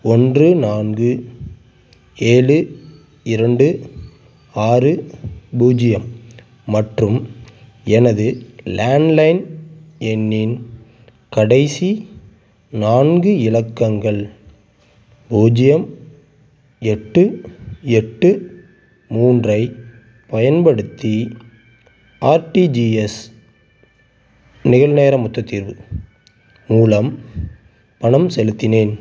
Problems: constant background noise